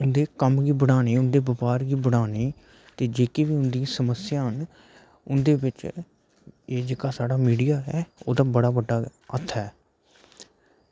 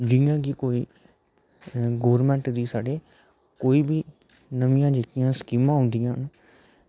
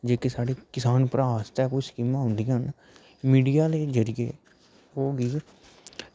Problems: none marked